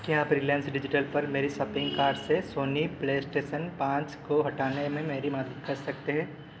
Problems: constant background noise